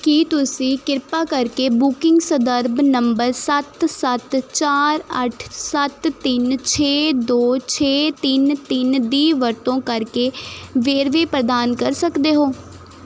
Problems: none marked